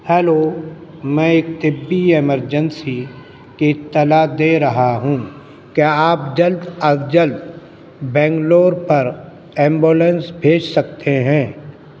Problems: constant background noise